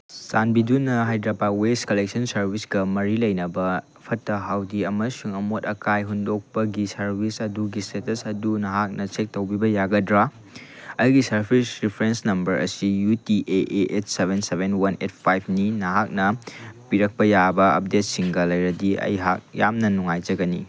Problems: none marked